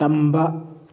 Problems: none marked